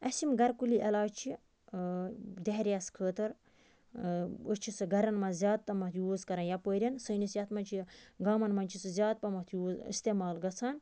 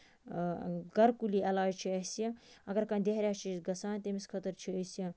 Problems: none marked